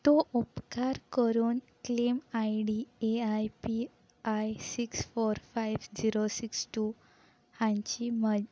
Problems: background sounds at intervals